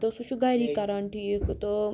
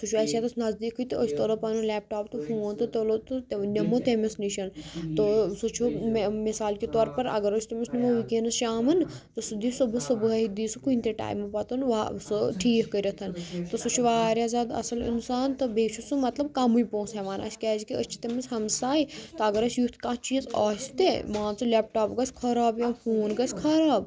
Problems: constant background noise